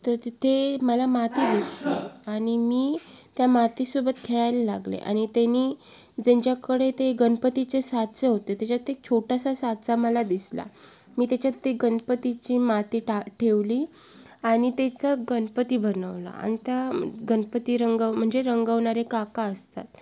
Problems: background sounds at intervals